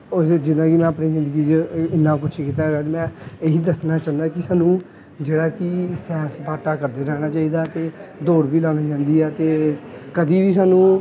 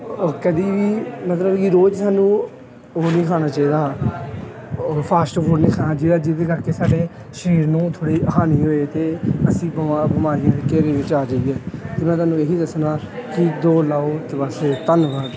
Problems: background sounds at intervals, background conversations at intervals